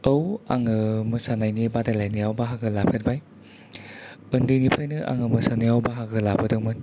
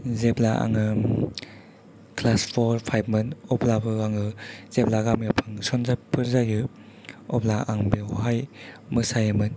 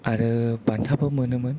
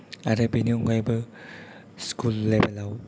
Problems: background conversations at intervals, low volume